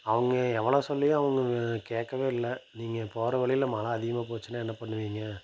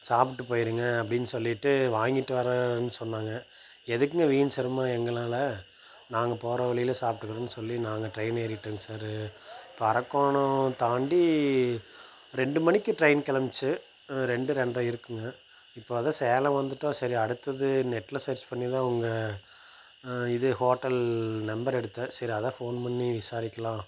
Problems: none marked